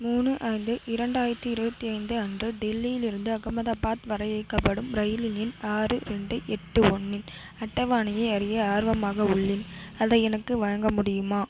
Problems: constant background noise